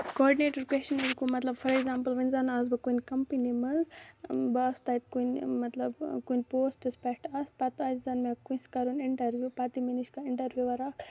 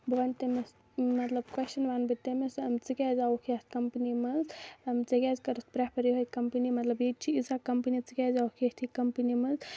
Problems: low volume